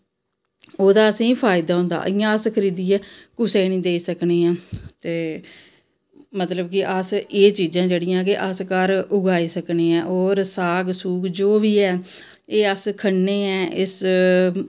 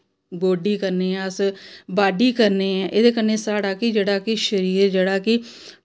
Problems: none marked